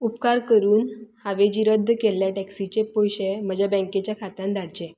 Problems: constant background noise